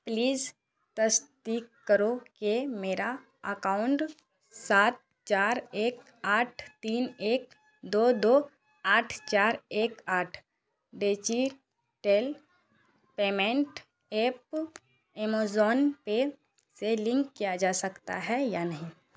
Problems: constant background noise